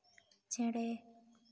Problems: echo, low volume